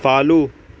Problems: constant background noise